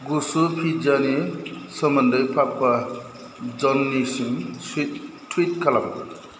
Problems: constant background noise